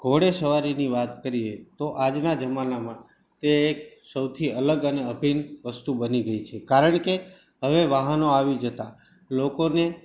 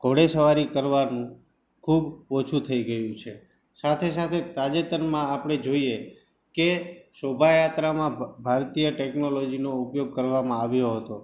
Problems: none marked